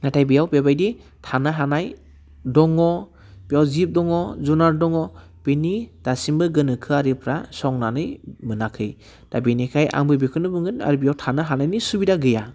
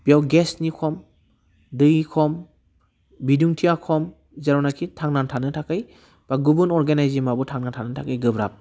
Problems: constant background noise